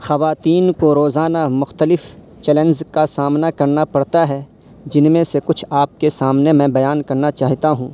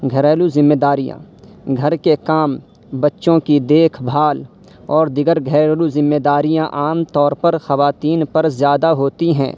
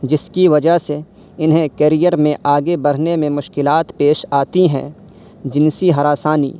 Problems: constant background noise